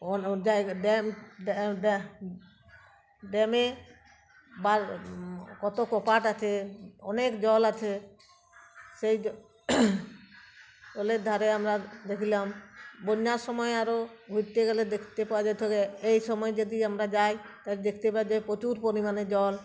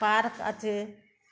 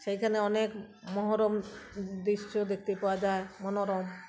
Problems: none marked